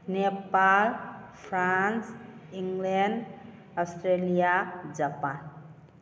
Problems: none marked